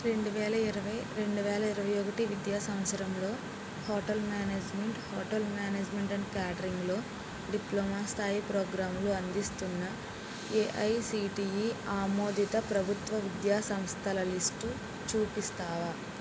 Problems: low volume